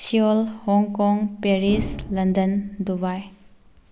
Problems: background sounds at intervals